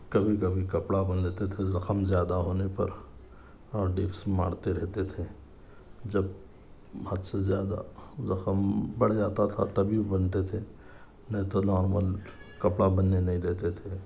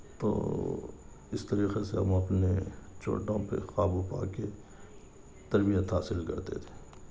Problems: none marked